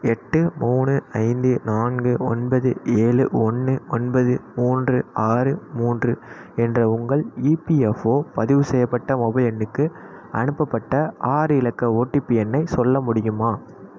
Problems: constant background noise